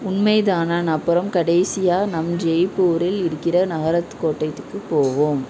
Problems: continuous background conversations